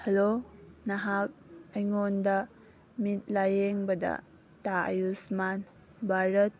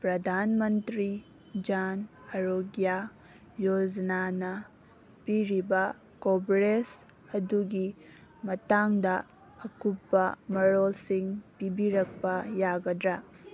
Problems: background sounds at intervals